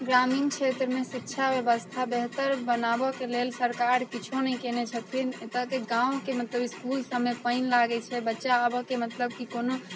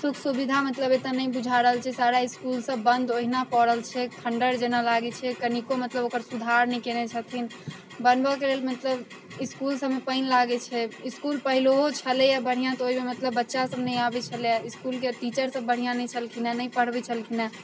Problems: constant background noise